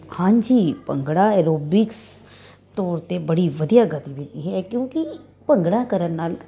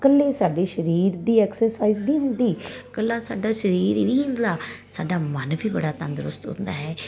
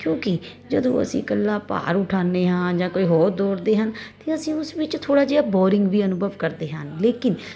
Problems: constant background noise